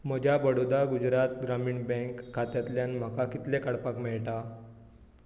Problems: background sounds at intervals